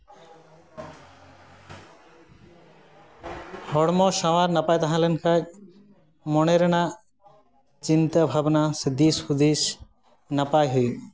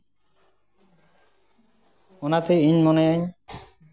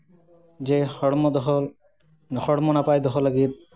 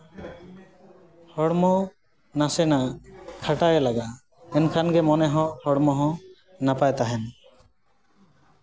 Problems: background sounds at intervals, continuous background conversations